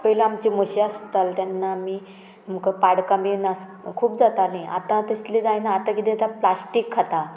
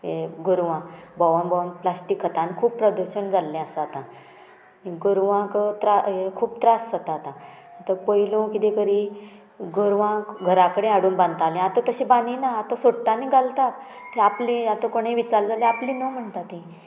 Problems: none marked